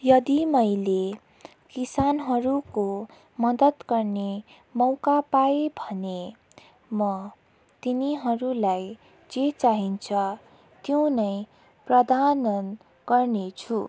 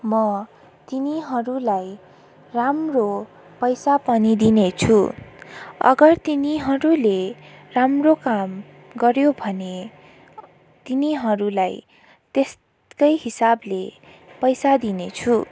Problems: constant background noise